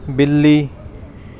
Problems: background sounds at intervals